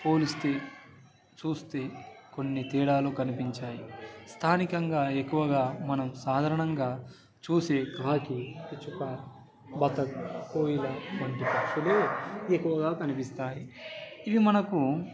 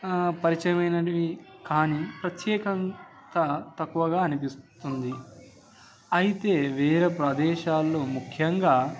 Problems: background sounds at intervals